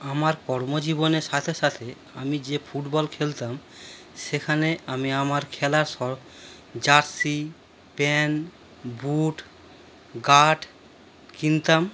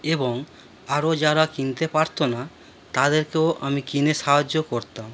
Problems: background sounds at intervals